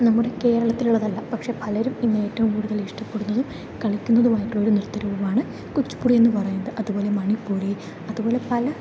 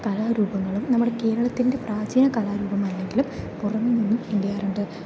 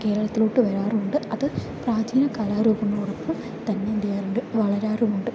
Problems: low volume